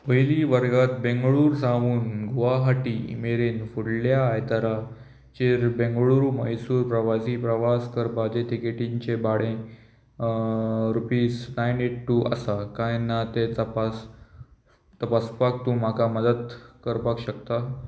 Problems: constant background noise